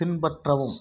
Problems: none marked